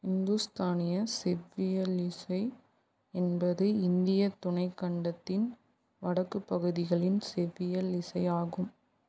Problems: none marked